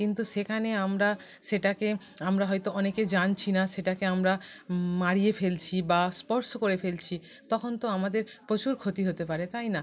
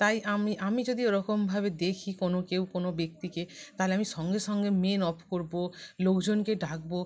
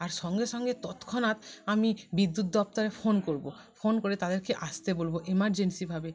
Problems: background sounds at intervals, continuous background conversations